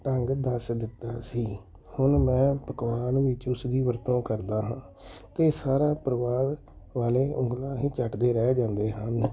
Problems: background sounds at intervals